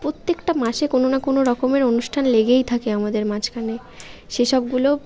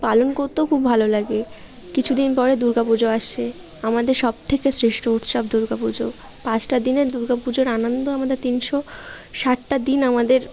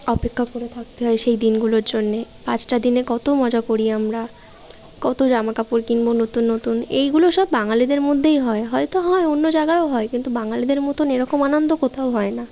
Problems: none marked